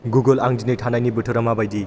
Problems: background sounds at intervals